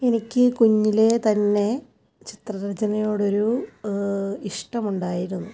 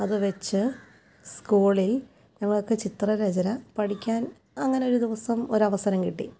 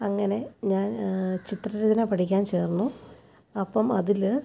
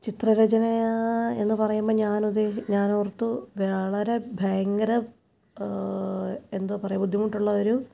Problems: background sounds at intervals